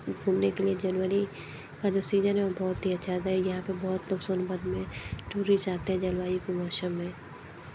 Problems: constant background noise